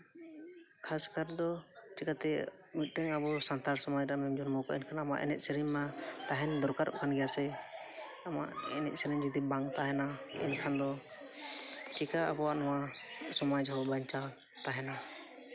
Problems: constant background noise